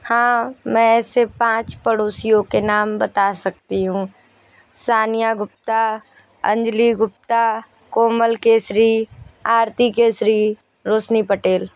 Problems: background sounds at intervals